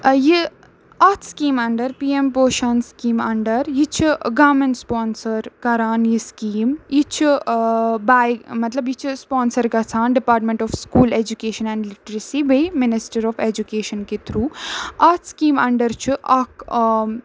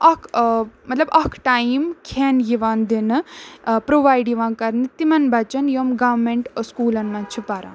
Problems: none marked